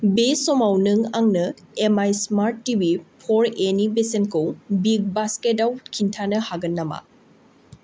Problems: none marked